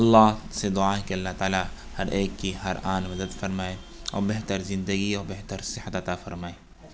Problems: constant background noise